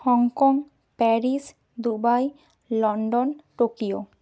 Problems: none marked